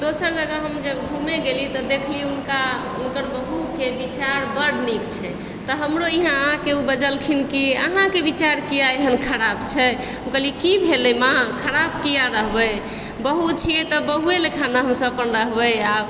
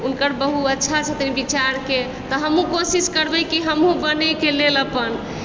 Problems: constant background noise